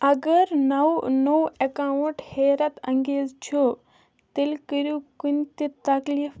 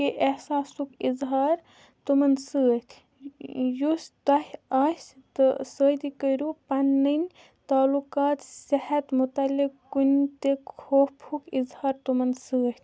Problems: background conversations at intervals